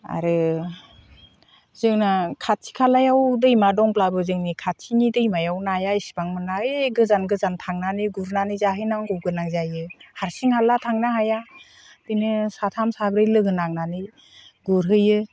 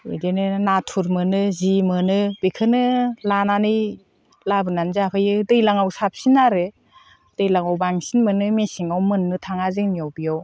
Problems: constant background noise